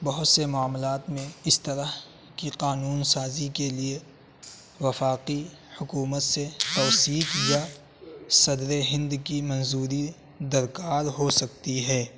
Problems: constant background noise